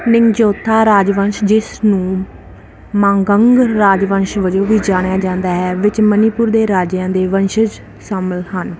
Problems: constant background noise